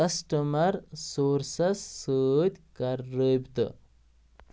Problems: background sounds at intervals